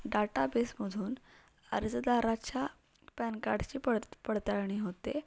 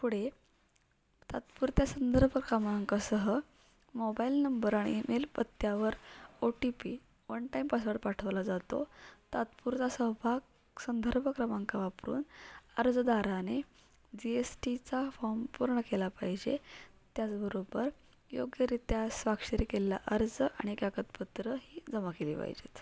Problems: background sounds at intervals